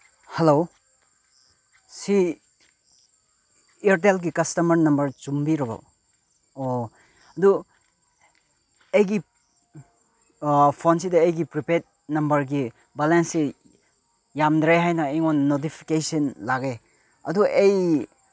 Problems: none marked